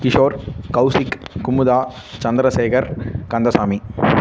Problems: constant background noise